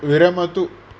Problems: none marked